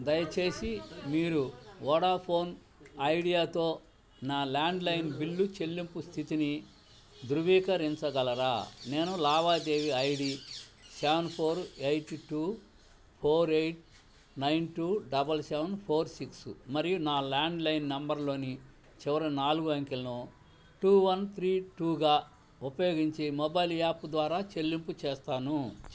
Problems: background sounds at intervals, low volume